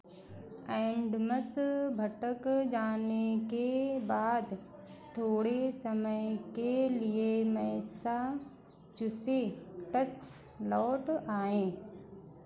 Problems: constant background noise